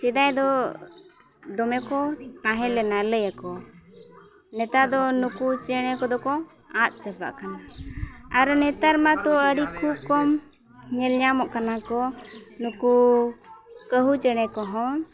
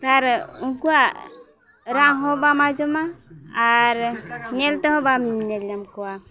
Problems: background sounds at intervals, continuous background conversations